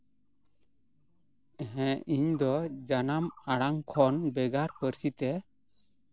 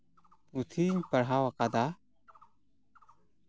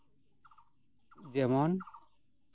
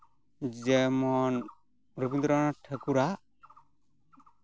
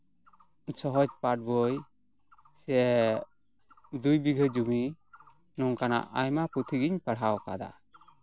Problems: background sounds at intervals